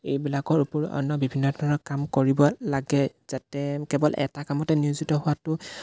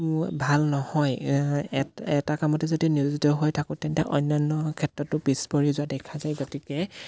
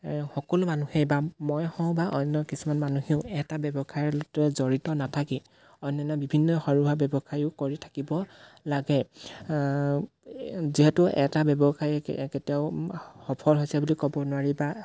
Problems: background sounds at intervals